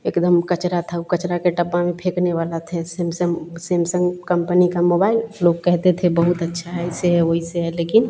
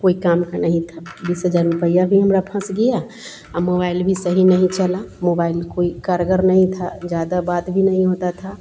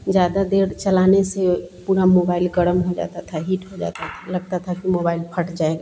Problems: constant background noise